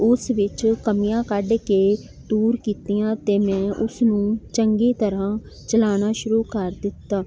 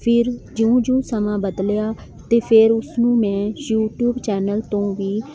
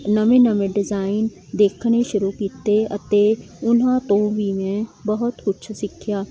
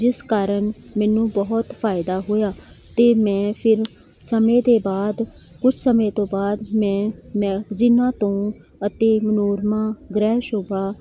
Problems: none marked